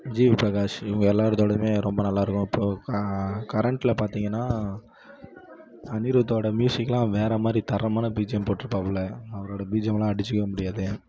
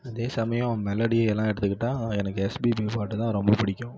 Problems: none marked